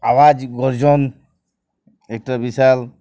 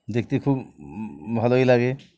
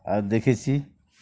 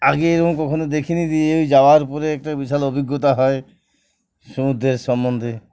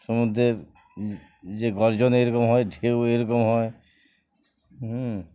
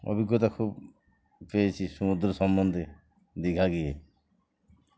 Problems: none marked